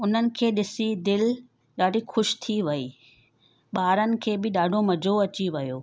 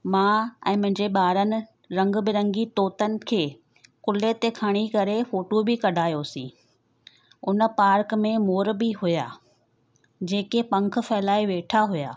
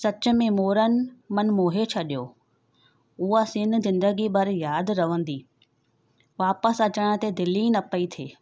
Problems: none marked